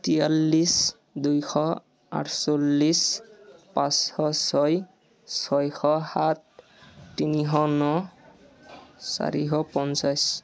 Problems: background sounds at intervals, continuous background conversations